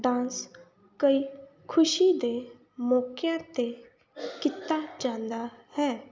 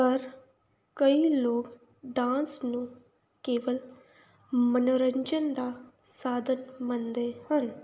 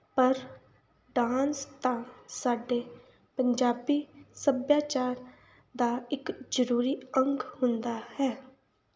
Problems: background sounds at intervals